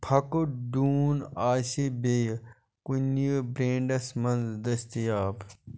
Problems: none marked